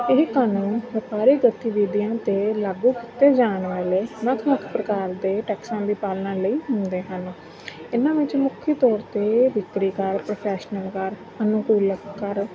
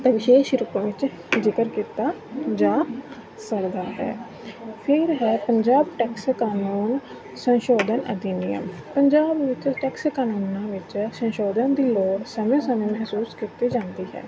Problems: continuous background conversations